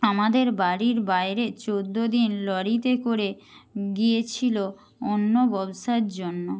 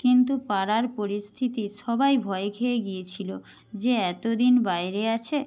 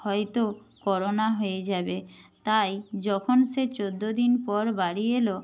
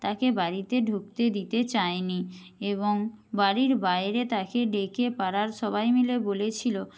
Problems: none marked